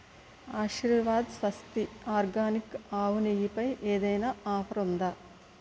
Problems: constant background noise